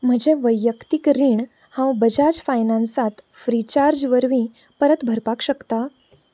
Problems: background sounds at intervals